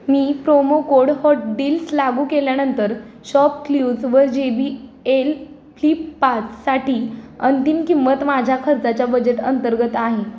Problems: background sounds at intervals